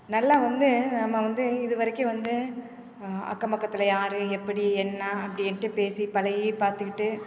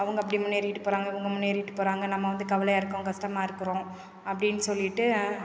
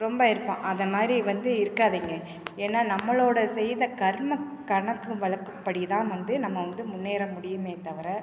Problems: none marked